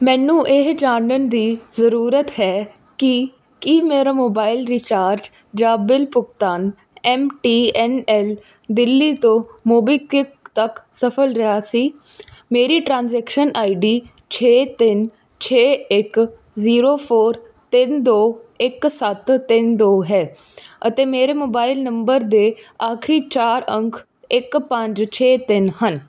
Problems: none marked